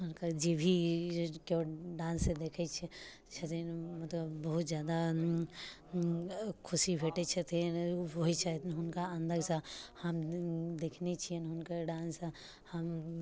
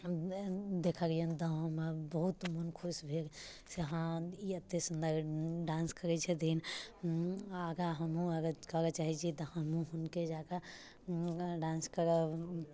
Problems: low volume